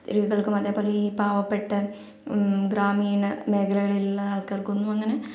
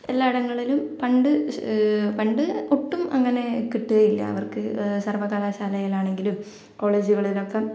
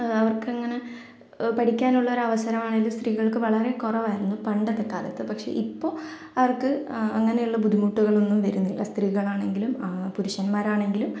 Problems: none marked